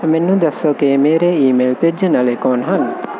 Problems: constant background noise